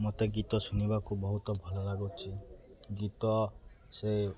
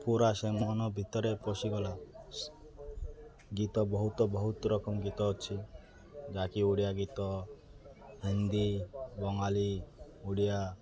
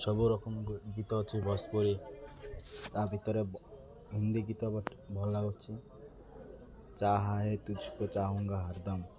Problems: constant background noise, continuous background conversations